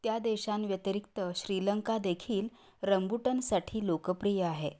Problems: none marked